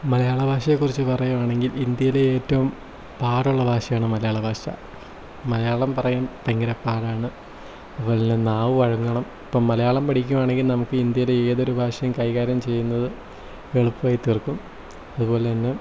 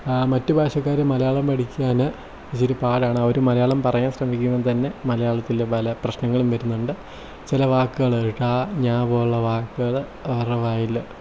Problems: low volume